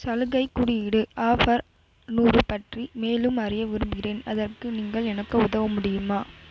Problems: constant background noise